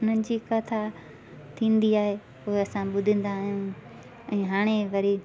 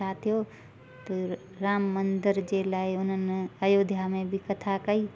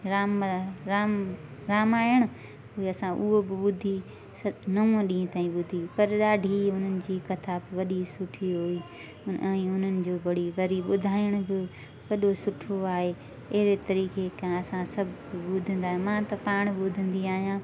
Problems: constant background noise